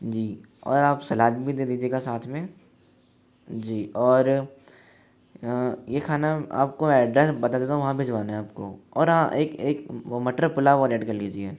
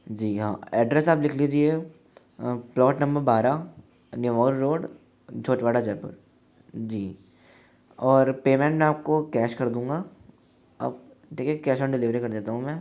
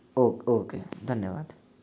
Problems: none marked